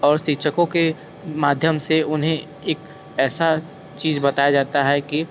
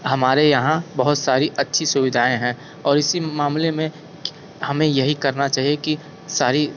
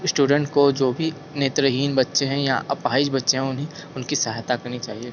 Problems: constant background noise